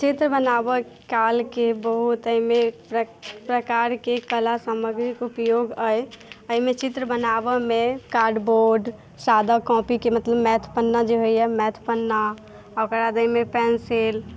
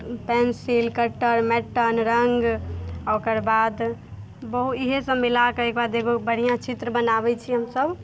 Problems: none marked